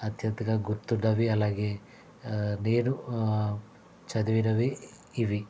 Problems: constant background noise